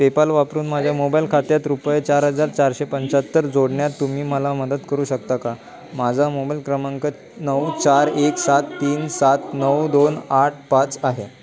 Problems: background conversations at intervals